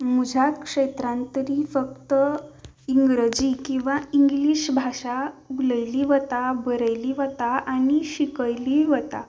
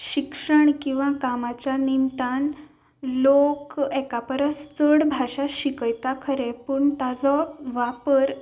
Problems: background sounds at intervals